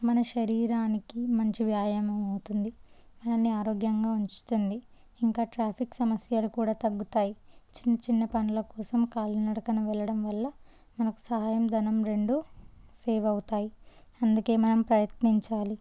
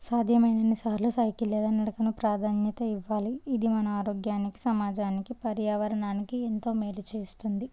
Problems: low volume